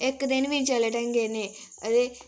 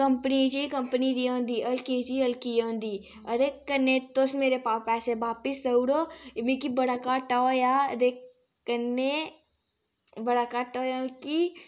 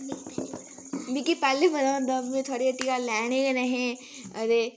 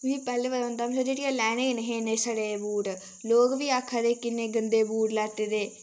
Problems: constant background noise